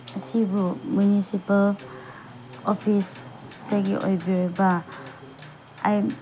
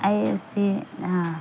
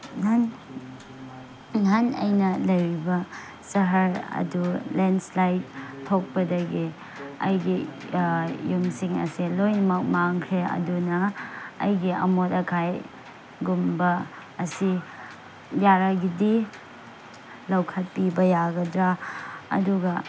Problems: background sounds at intervals